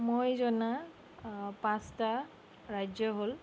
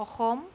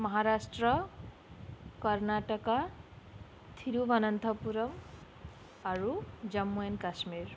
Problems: none marked